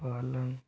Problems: constant background noise, low volume